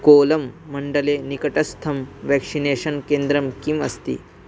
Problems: constant background noise